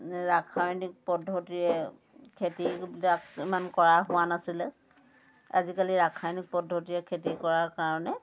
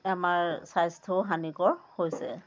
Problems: constant background noise, background conversations at intervals